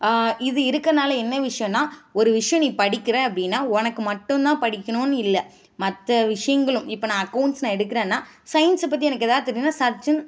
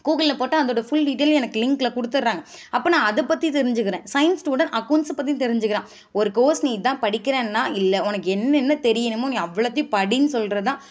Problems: none marked